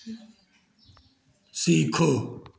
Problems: none marked